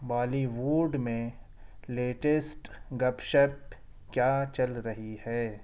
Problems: none marked